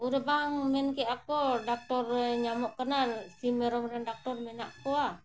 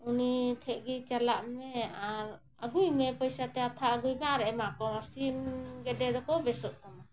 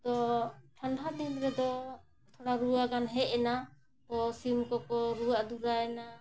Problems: none marked